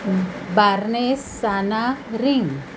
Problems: constant background noise